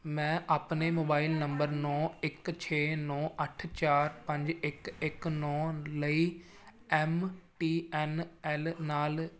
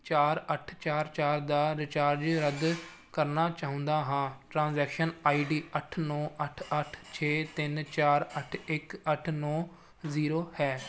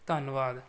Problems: background sounds at intervals